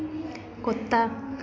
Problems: none marked